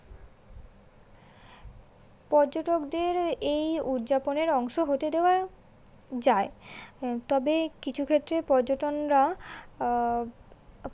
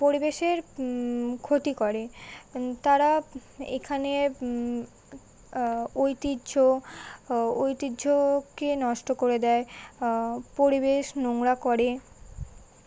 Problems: constant background noise